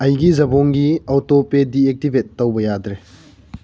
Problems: low volume